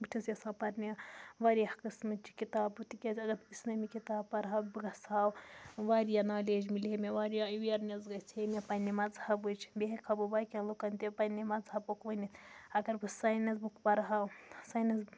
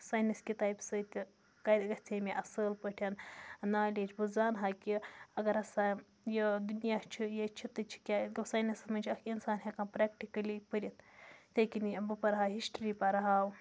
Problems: constant background noise